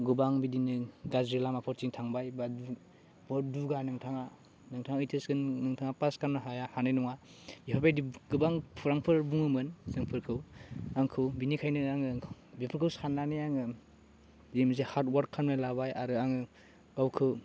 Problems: constant background noise